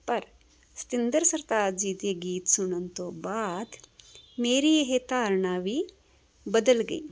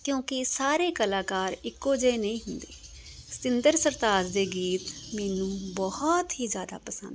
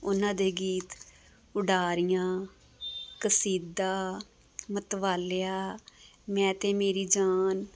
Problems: background sounds at intervals